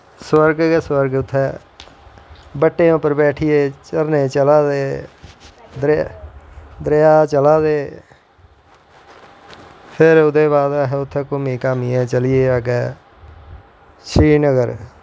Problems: constant background noise